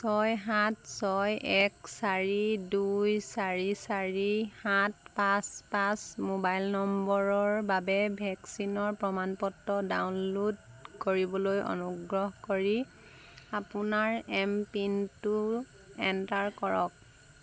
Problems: constant background noise